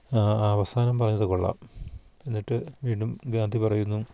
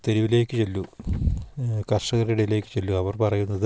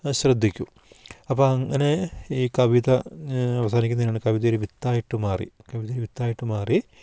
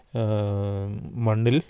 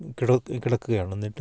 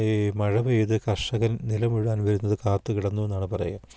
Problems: none marked